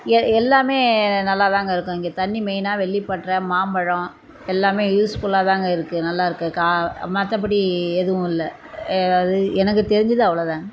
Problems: constant background noise